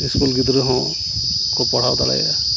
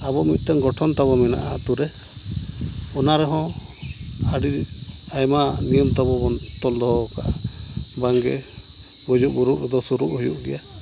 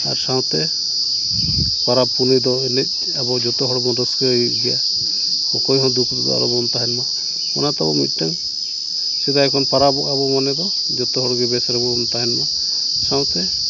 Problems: none marked